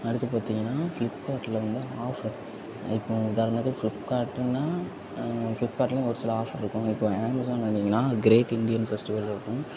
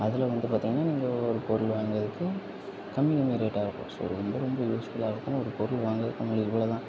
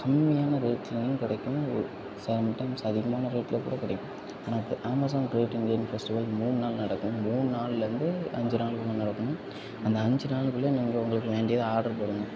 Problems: background sounds at intervals, low volume